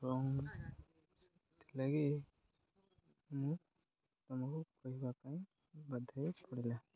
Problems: constant background noise